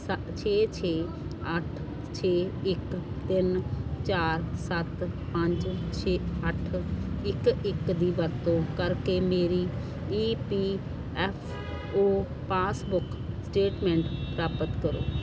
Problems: constant background noise